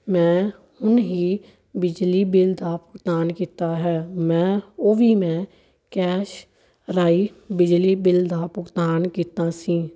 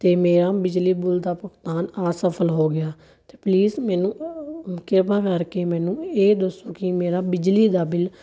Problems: none marked